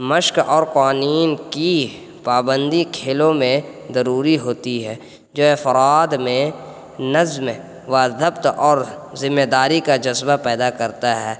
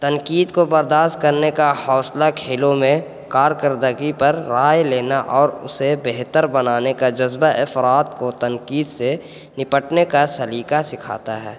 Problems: constant background noise